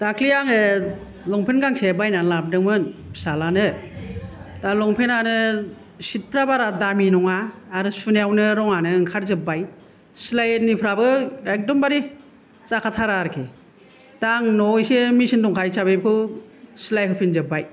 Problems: none marked